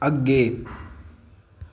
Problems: echo